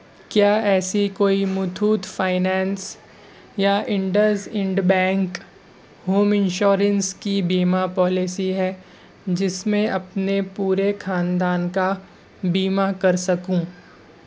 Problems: constant background noise